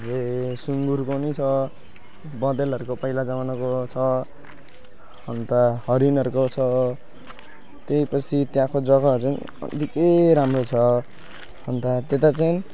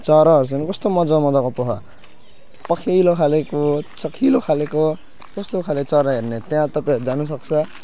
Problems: constant background noise, continuous background conversations